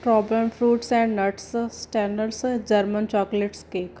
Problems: none marked